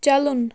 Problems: none marked